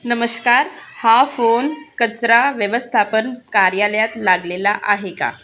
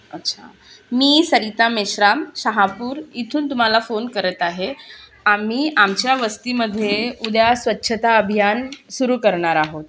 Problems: constant background noise, continuous background conversations